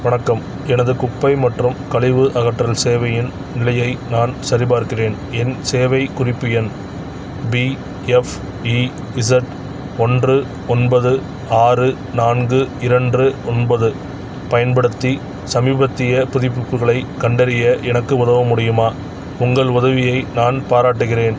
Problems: background sounds at intervals, background conversations at intervals